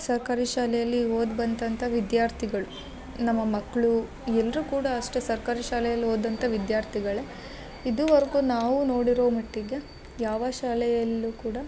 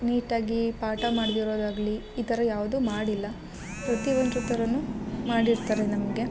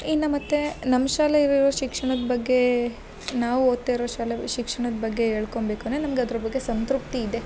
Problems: background sounds at intervals